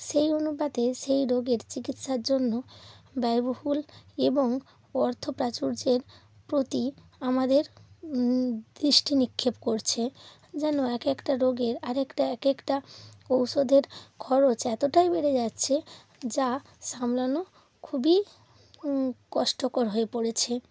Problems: none marked